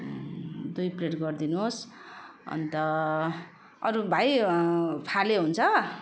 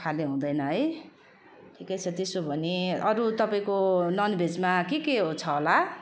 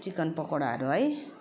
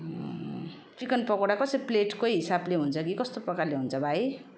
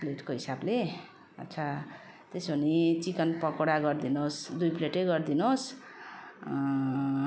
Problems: constant background noise